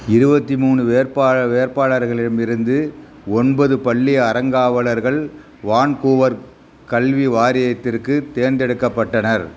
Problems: constant background noise